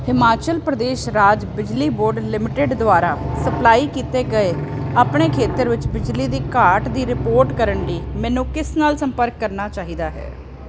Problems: none marked